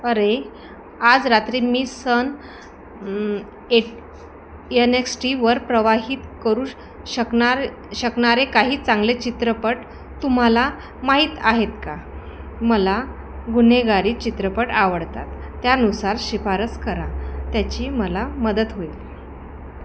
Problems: constant background noise, background conversations at intervals